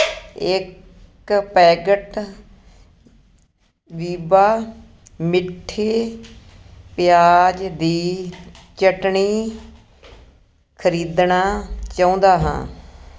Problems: none marked